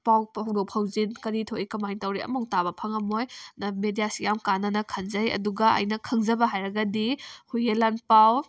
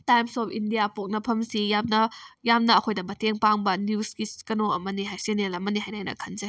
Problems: none marked